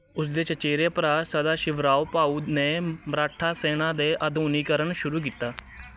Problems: continuous background conversations